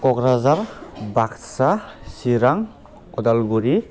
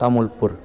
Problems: low volume